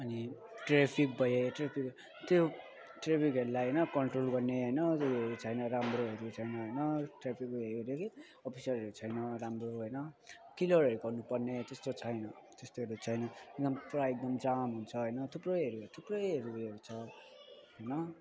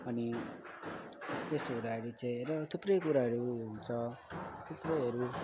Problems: constant background noise